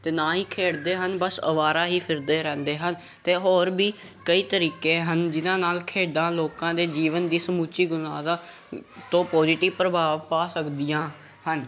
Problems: none marked